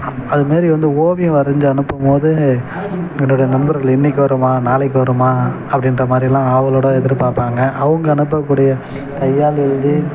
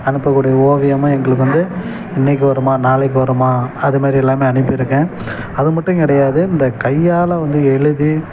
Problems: background sounds at intervals